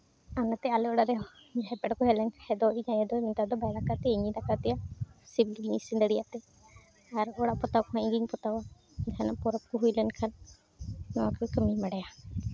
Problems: constant background noise, background conversations at intervals